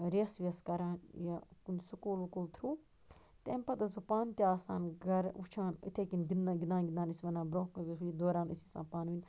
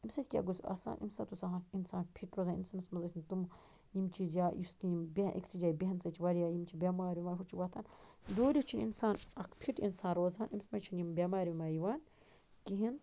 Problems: constant background noise